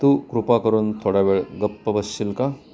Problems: constant background noise, continuous background conversations